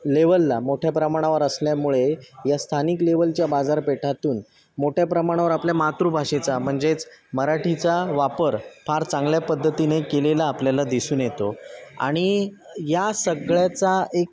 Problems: constant background noise, background conversations at intervals